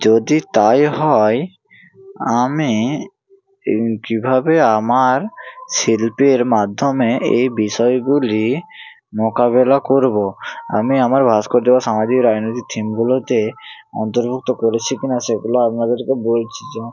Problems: none marked